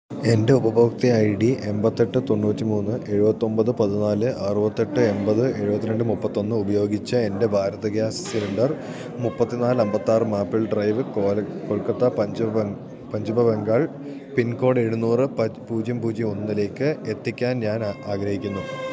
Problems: constant background noise